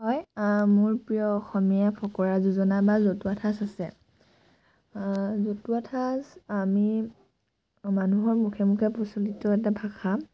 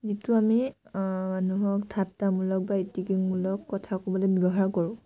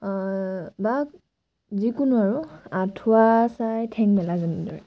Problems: background sounds at intervals